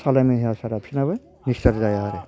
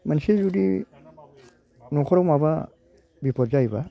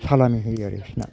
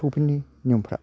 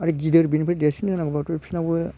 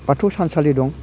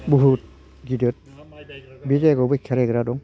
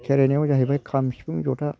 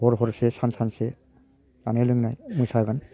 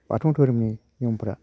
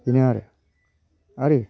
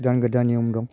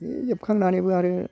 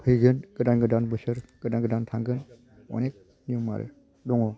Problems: constant background noise